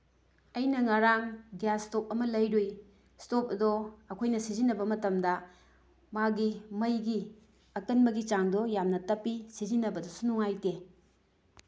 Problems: none marked